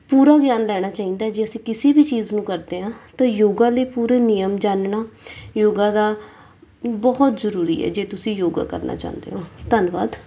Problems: background sounds at intervals